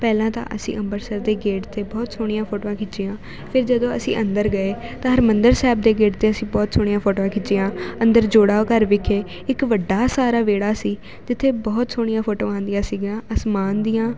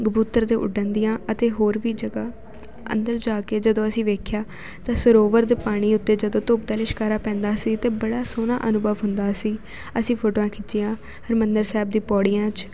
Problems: constant background noise